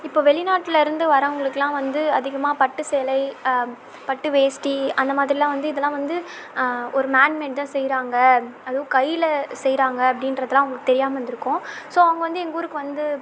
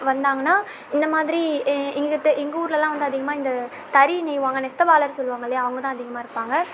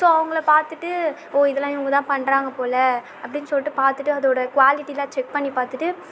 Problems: background sounds at intervals